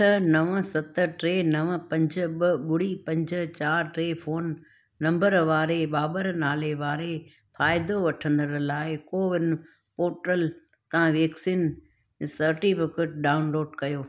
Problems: none marked